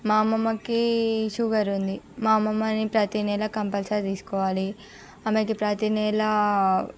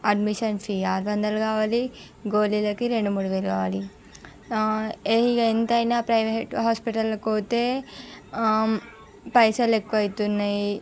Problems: background sounds at intervals